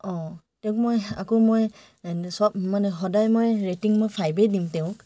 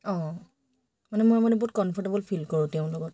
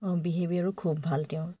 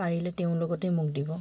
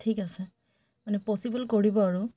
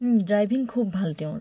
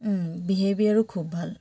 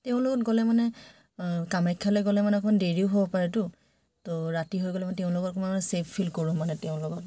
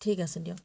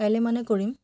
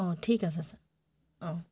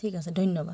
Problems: background sounds at intervals